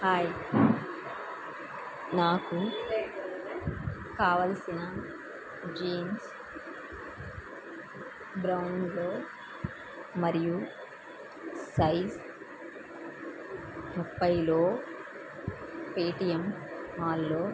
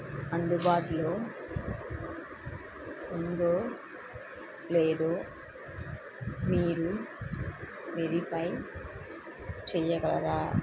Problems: constant background noise